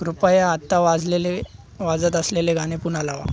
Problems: none marked